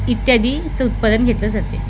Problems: constant background noise